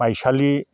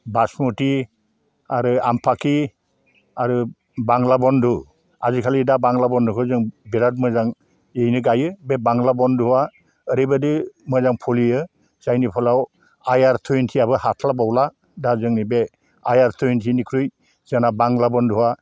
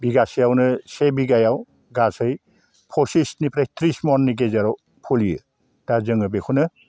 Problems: low volume